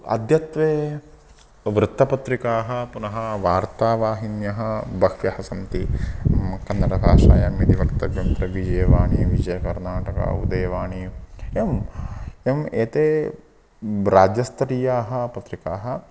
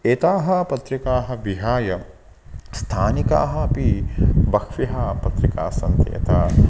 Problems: constant background noise